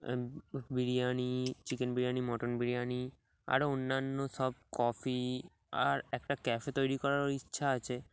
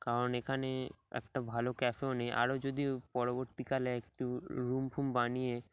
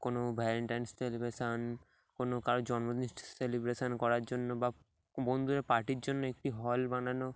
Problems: none marked